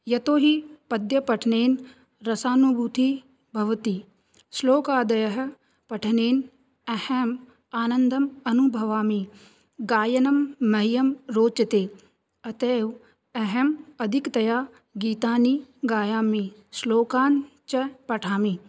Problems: none marked